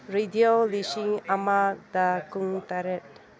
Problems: low volume